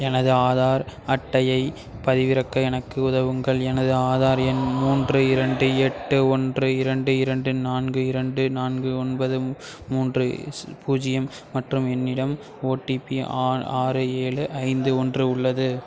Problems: constant background noise, continuous background conversations